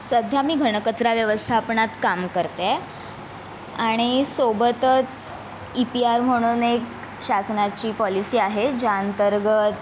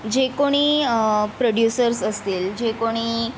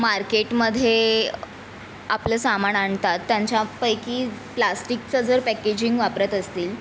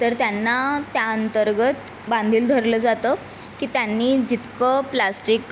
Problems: constant background noise, background conversations at intervals